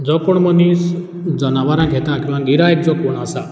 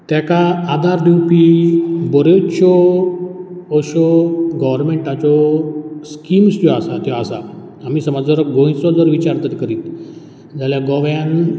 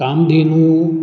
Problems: background sounds at intervals